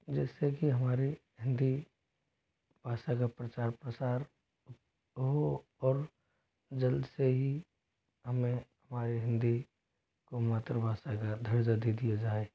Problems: constant background noise